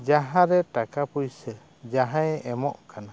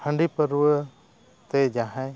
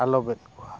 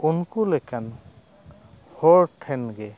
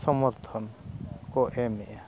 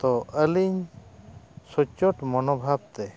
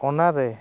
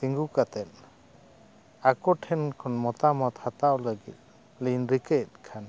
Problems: constant background noise